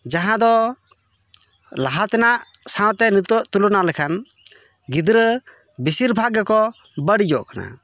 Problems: background conversations at intervals